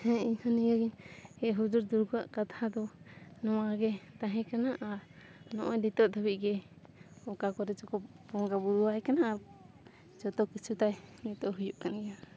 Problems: constant background noise, background conversations at intervals